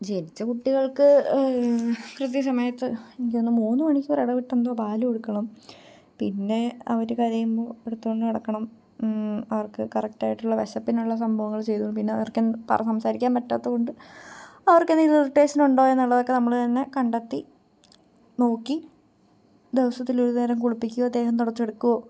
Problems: low volume